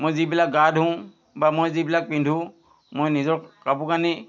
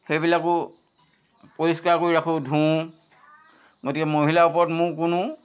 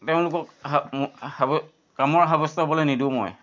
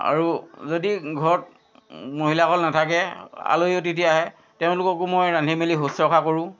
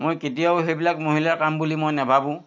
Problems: constant background noise